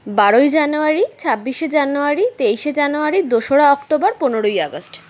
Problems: none marked